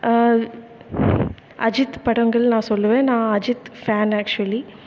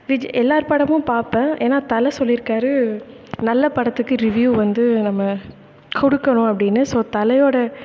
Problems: constant background noise, echo